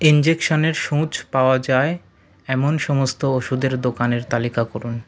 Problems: none marked